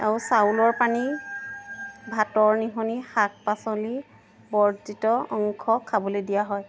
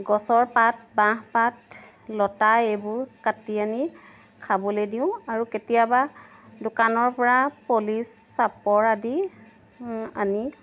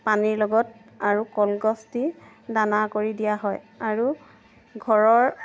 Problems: background sounds at intervals